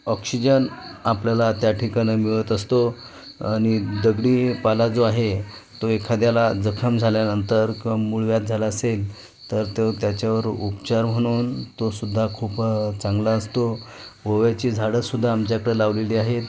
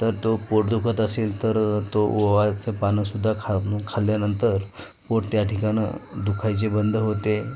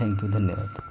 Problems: constant background noise, background conversations at intervals